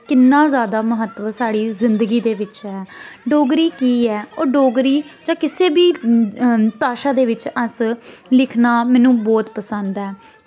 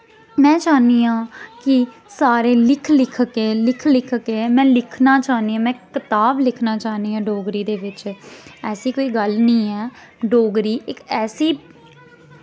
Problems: none marked